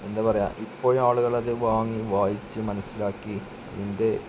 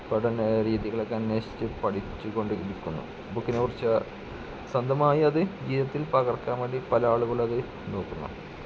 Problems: constant background noise, low volume